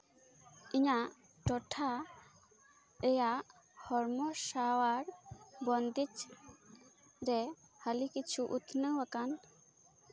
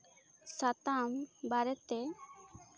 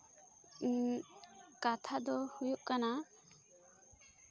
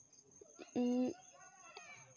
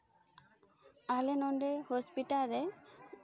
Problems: background sounds at intervals